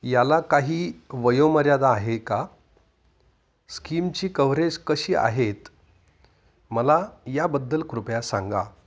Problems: constant background noise, echo, low volume